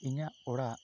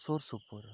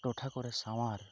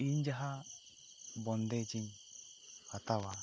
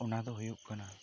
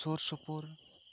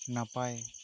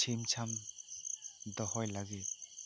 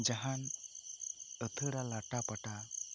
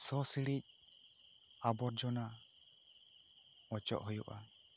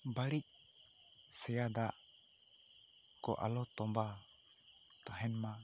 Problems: low volume